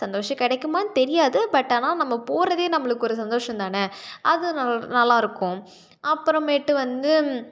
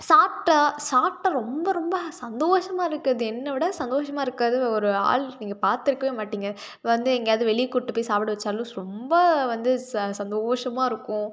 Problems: none marked